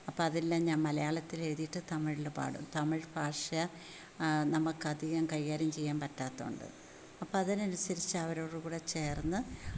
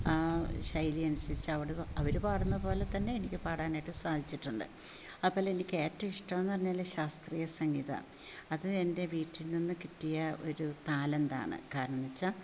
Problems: low volume